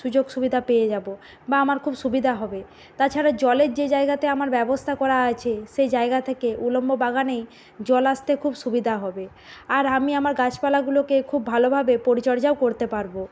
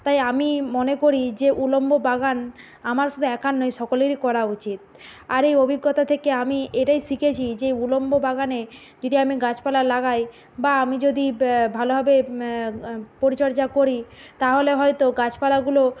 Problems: constant background noise